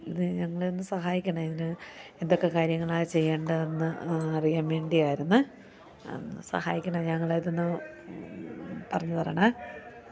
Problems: none marked